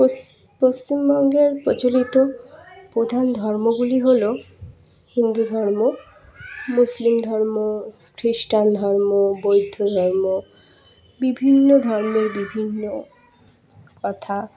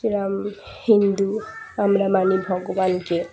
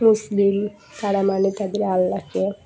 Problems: continuous background conversations